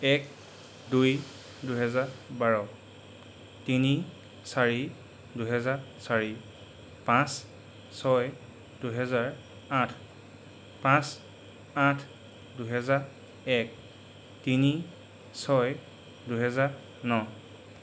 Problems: constant background noise